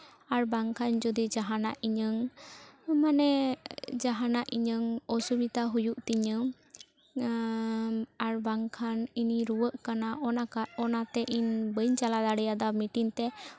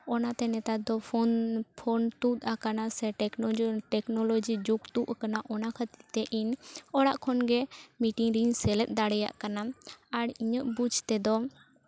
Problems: constant background noise, continuous background conversations